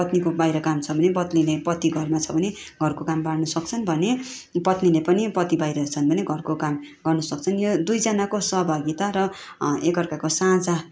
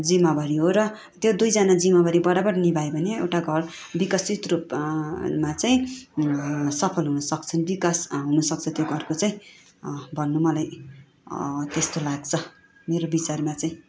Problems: none marked